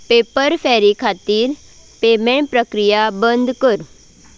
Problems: background sounds at intervals